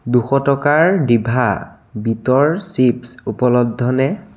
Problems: constant background noise